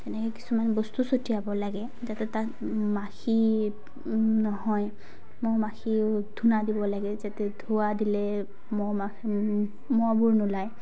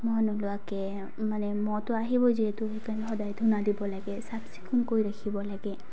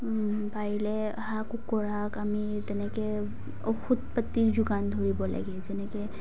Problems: background sounds at intervals